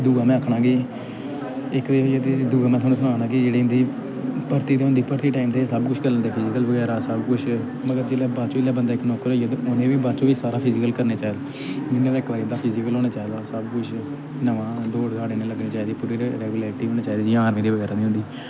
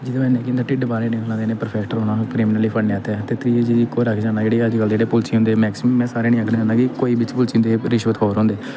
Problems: constant background noise